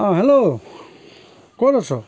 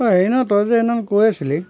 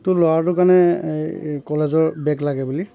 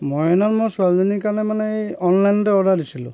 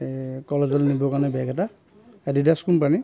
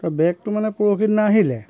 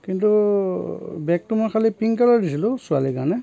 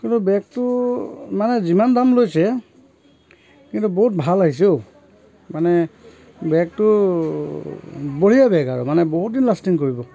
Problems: constant background noise, continuous background conversations